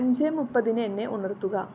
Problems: constant background noise